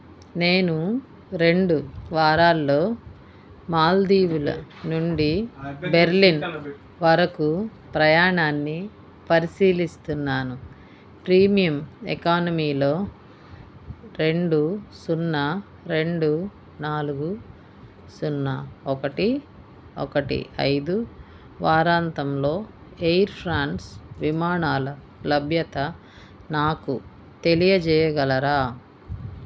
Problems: background conversations at intervals